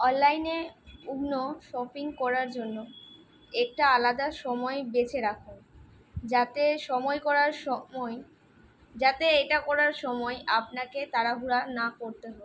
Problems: constant background noise